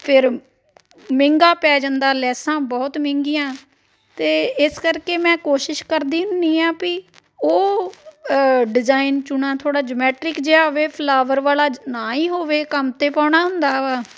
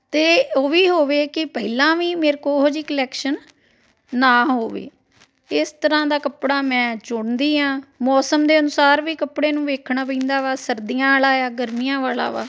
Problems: background sounds at intervals, continuous background conversations